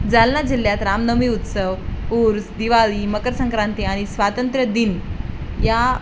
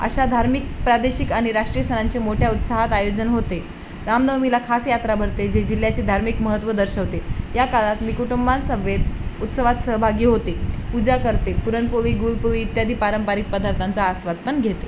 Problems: constant background noise